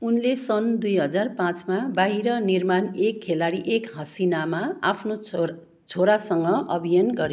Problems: none marked